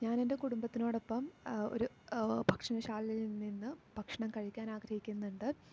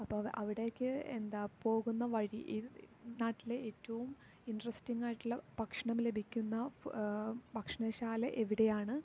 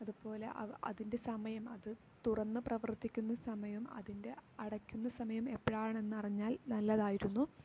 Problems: low volume